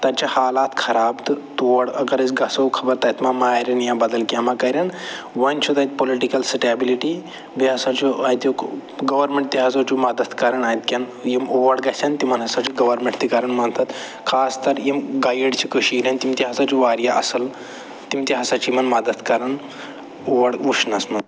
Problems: none marked